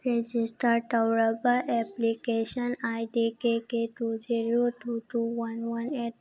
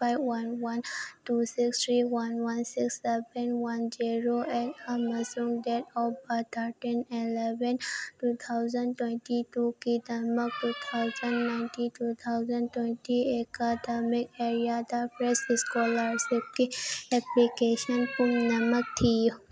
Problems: background conversations at intervals